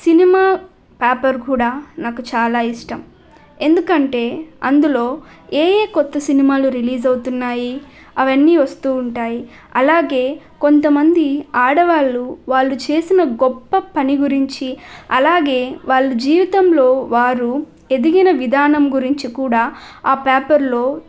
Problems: none marked